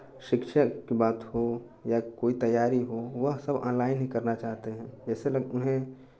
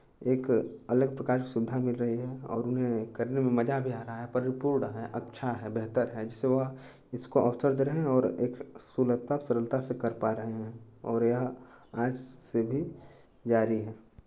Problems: none marked